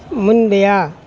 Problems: none marked